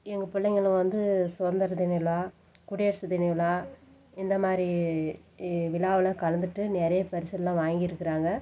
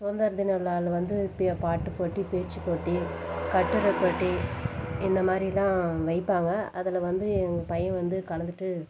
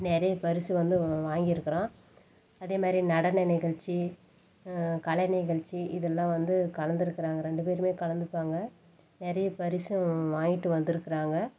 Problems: background sounds at intervals